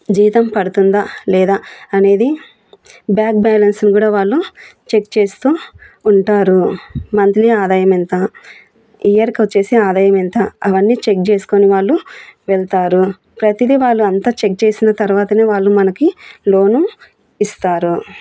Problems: background sounds at intervals